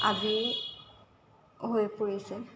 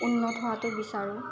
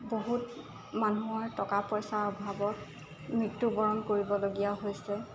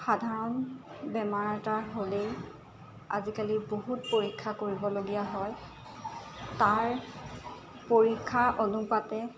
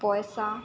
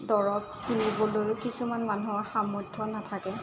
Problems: constant background noise